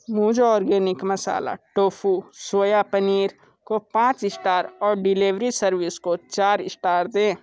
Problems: background sounds at intervals